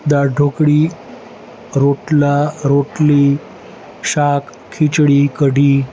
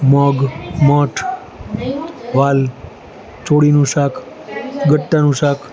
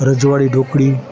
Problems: constant background noise, continuous background conversations